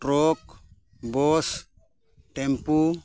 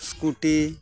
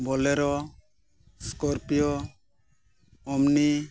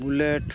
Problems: background sounds at intervals